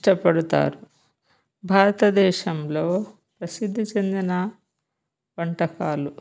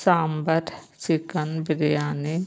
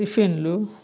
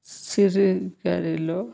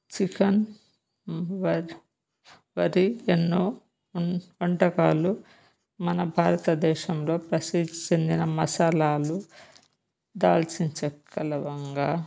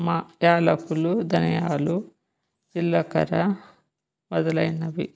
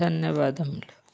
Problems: none marked